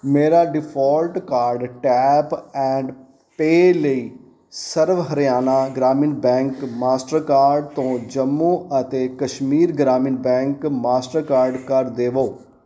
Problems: background sounds at intervals